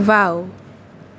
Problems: constant background noise